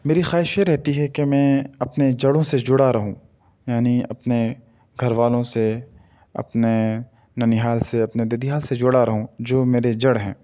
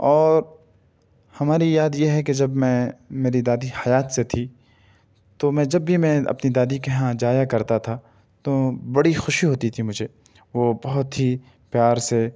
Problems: none marked